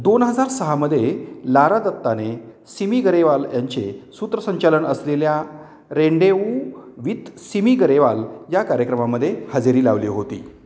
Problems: none marked